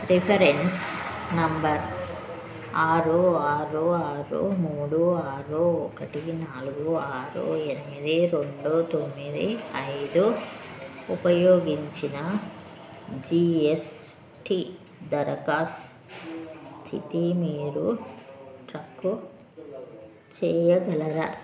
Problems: constant background noise